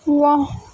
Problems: constant background noise, low volume